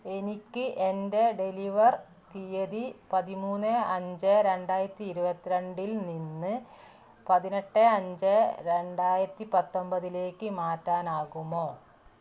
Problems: constant background noise